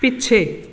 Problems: none marked